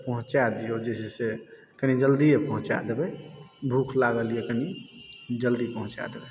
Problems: background sounds at intervals